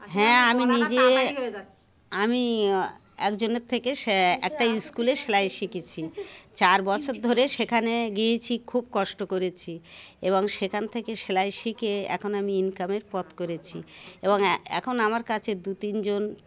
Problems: constant background noise, continuous background conversations